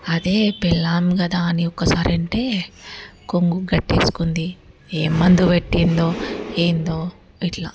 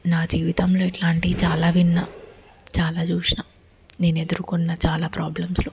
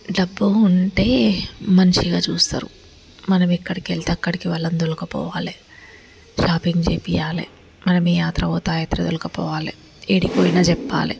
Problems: background sounds at intervals